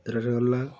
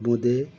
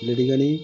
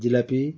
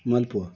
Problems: background sounds at intervals